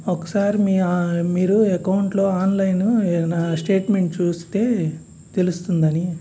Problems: none marked